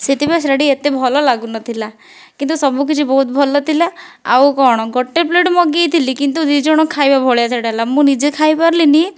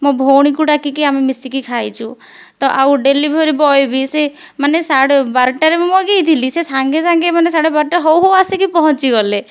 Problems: background sounds at intervals